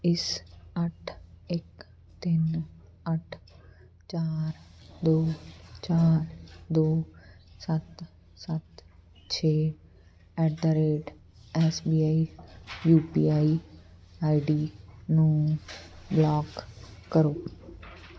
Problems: none marked